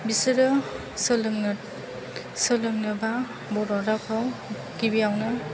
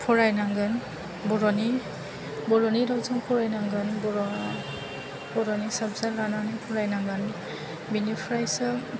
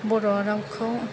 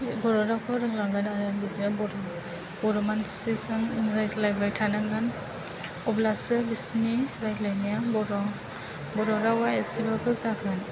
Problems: low volume